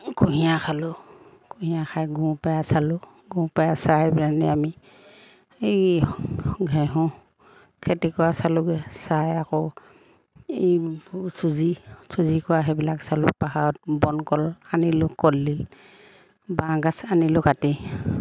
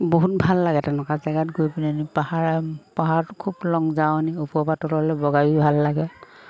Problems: background sounds at intervals